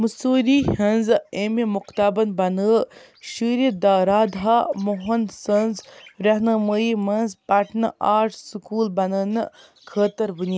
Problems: constant background noise